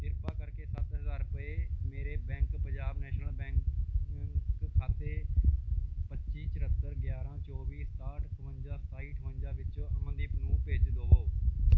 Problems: background sounds at intervals